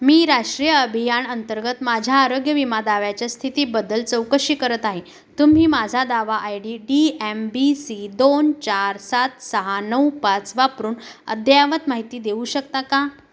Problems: none marked